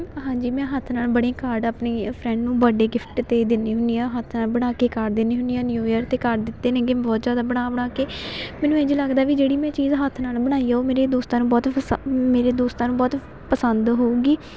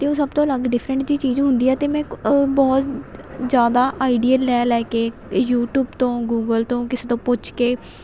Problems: constant background noise